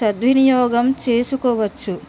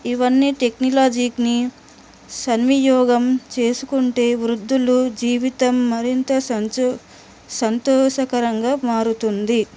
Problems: constant background noise